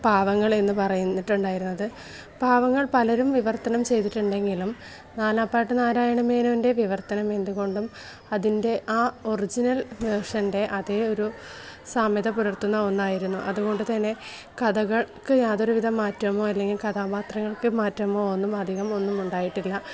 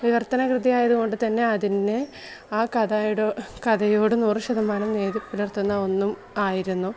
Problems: background sounds at intervals